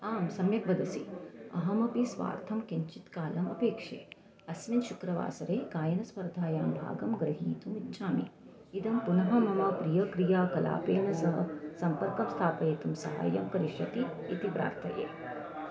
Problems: constant background noise, background conversations at intervals